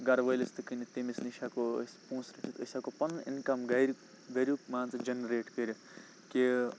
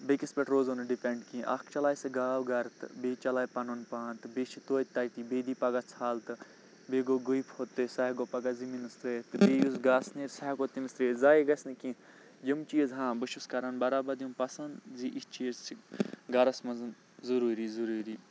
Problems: none marked